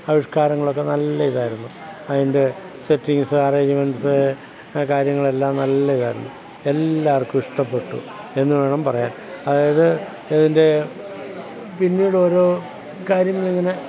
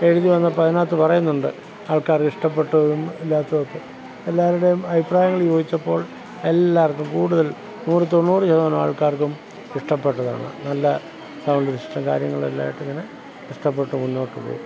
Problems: constant background noise, background conversations at intervals